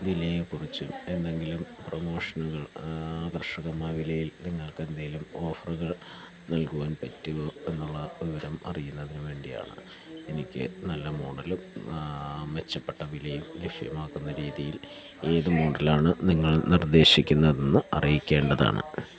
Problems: low volume